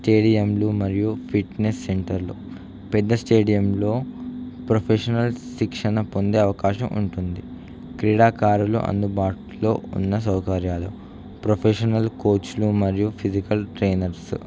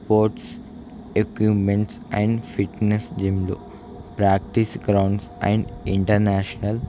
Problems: none marked